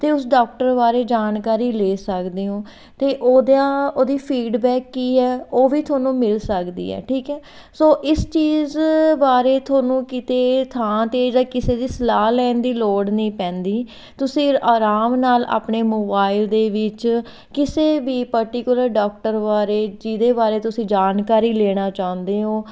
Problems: background sounds at intervals